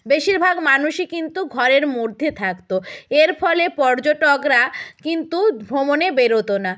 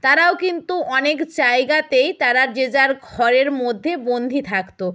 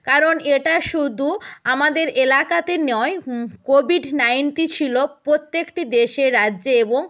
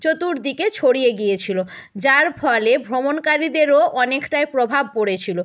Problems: none marked